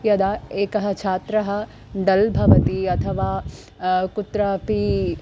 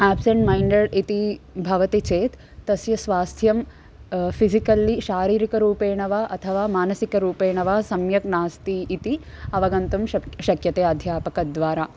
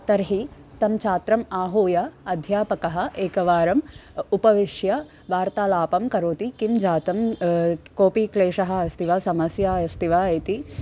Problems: constant background noise